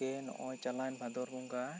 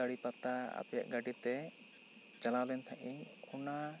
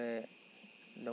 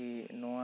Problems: background conversations at intervals